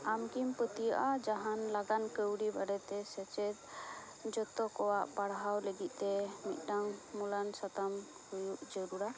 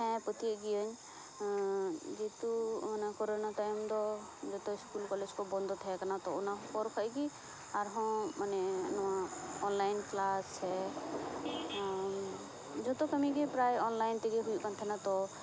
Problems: constant background noise